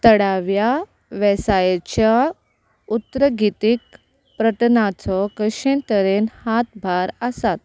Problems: constant background noise